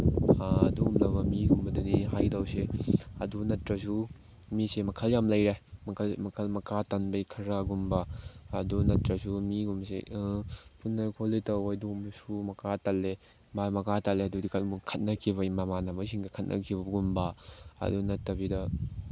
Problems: background sounds at intervals